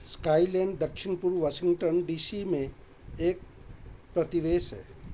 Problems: background sounds at intervals